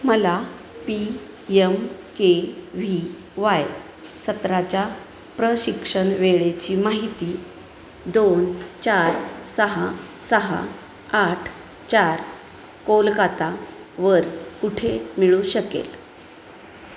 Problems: none marked